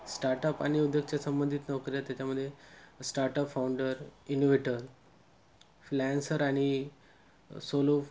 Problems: constant background noise